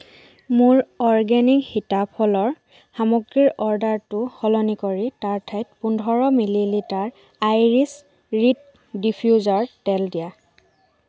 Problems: background sounds at intervals